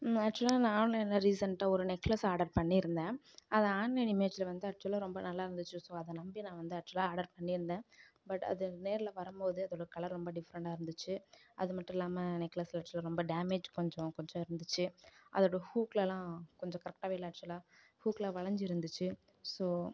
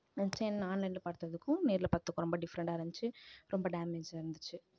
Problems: low volume